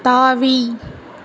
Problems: constant background noise